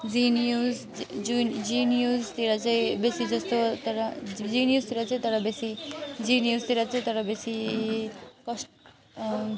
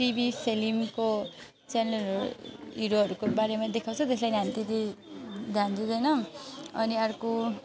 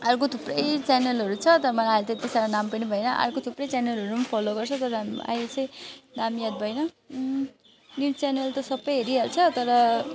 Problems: constant background noise